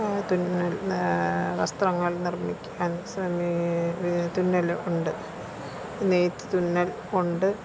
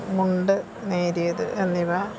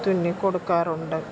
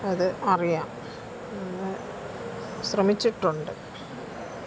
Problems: constant background noise, low volume